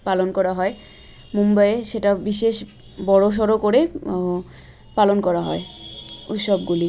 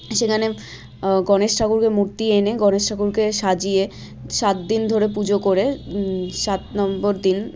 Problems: none marked